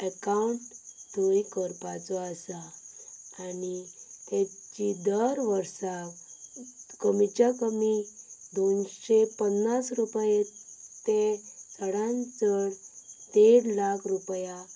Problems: none marked